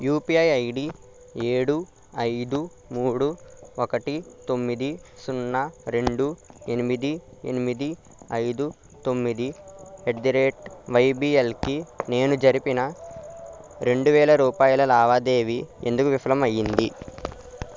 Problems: none marked